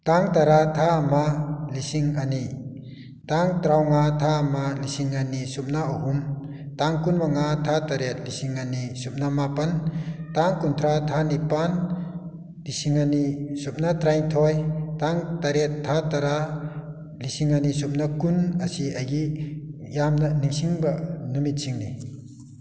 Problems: none marked